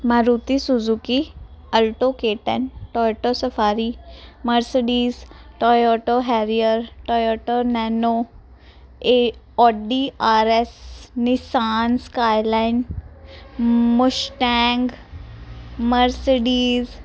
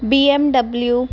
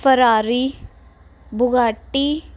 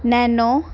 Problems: constant background noise